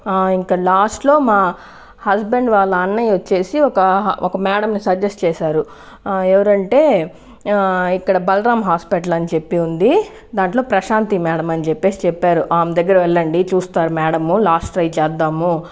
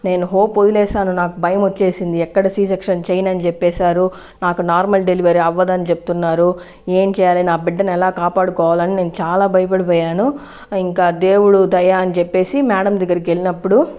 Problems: constant background noise